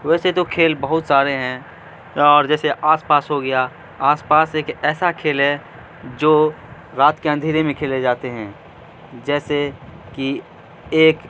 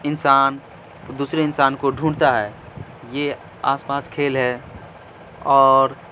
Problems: constant background noise, low volume